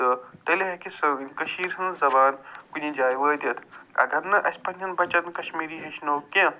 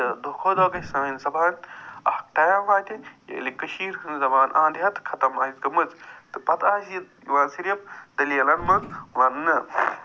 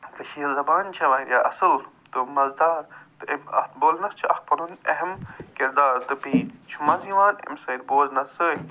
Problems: none marked